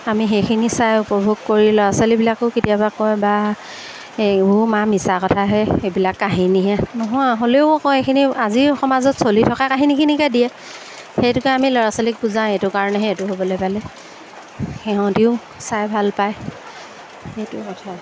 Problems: background sounds at intervals